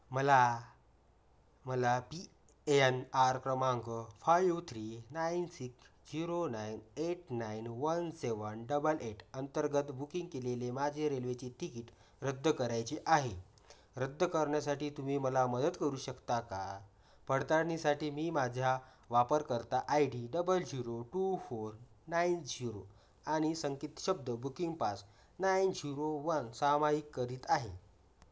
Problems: background sounds at intervals, low volume